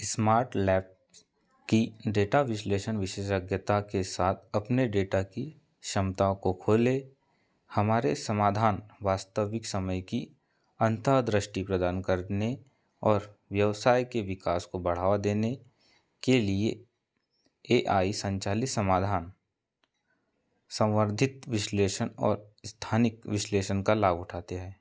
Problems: none marked